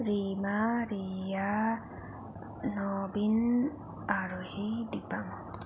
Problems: none marked